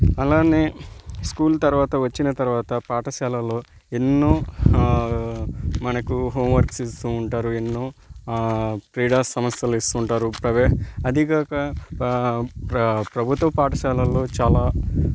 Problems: constant background noise